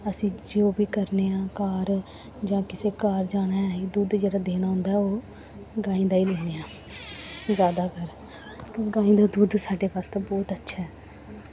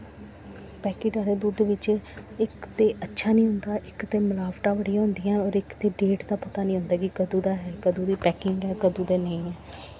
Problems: constant background noise